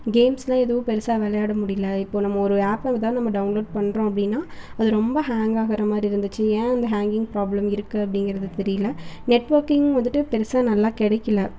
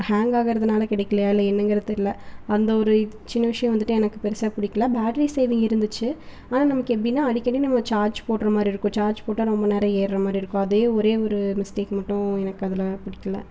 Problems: none marked